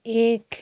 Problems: none marked